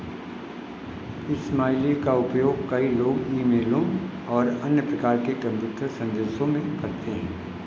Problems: none marked